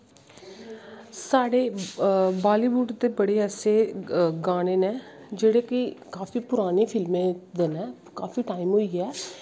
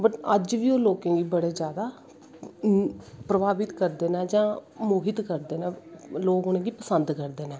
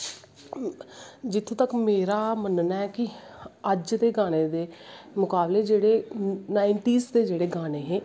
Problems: constant background noise